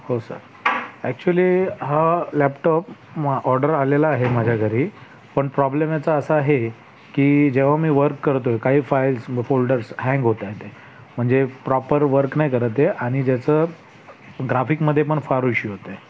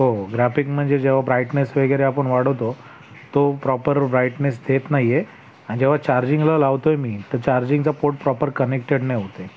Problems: background sounds at intervals, background conversations at intervals